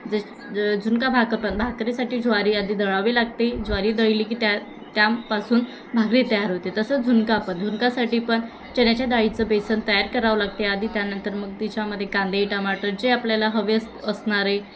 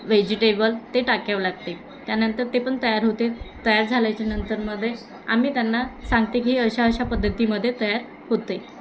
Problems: constant background noise, continuous background conversations